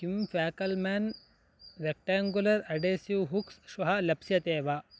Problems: constant background noise